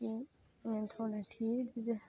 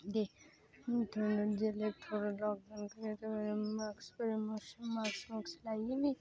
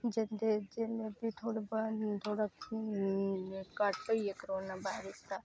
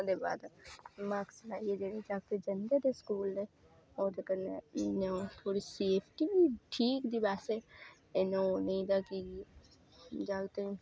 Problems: background sounds at intervals